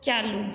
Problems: echo